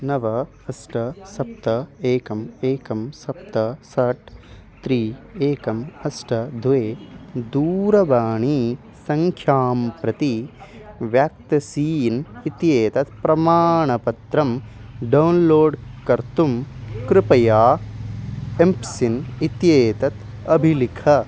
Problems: background sounds at intervals